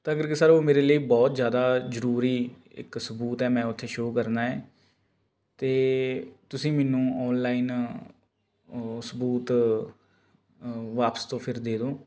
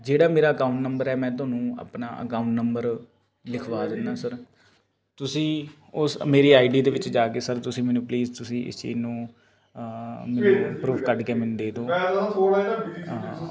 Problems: constant background noise